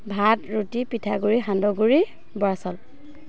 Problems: constant background noise